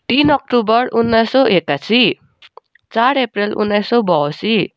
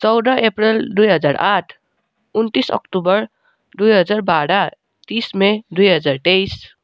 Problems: none marked